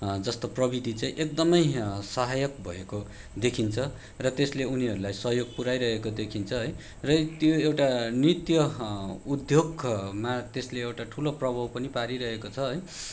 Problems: background sounds at intervals